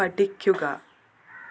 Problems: constant background noise